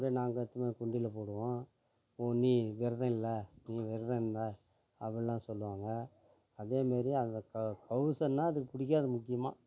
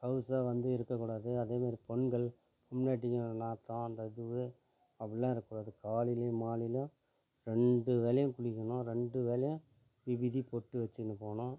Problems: background sounds at intervals, low volume